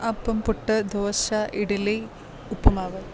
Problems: background sounds at intervals